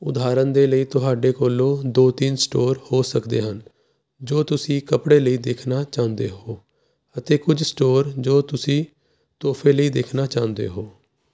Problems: constant background noise